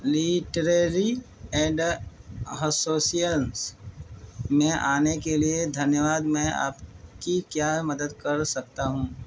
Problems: constant background noise